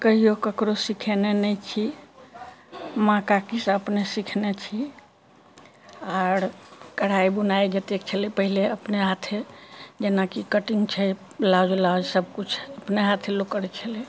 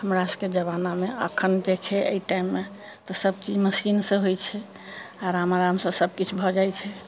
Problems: constant background noise